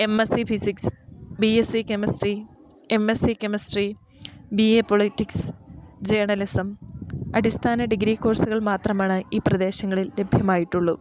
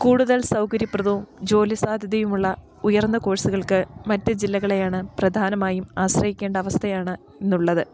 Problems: none marked